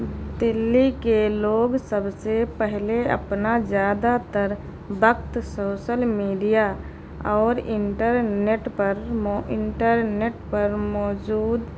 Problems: constant background noise